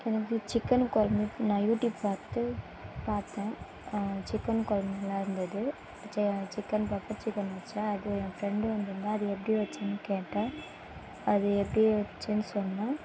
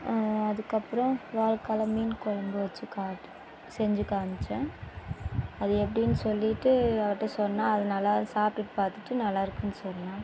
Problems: none marked